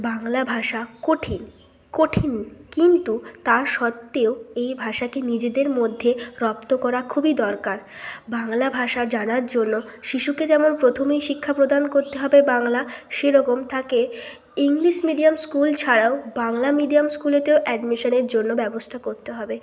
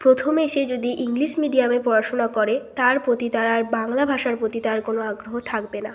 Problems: constant background noise